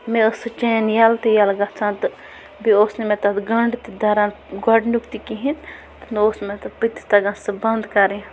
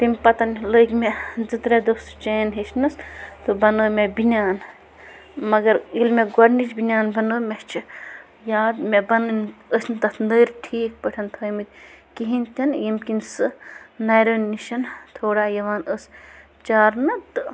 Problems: constant background noise